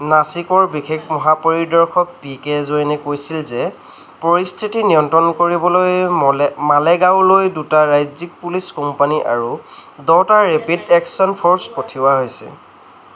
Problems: constant background noise